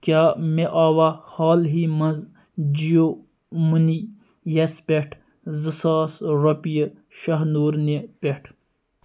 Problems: none marked